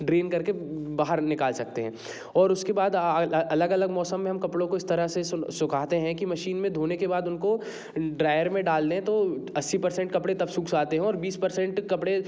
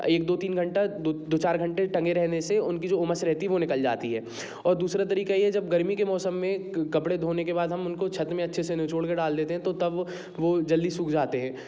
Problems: background sounds at intervals